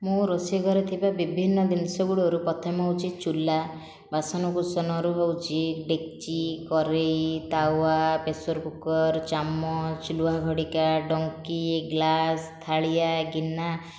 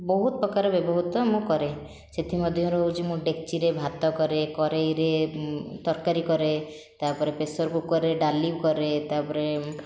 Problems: none marked